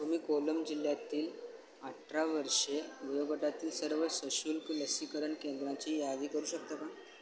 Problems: constant background noise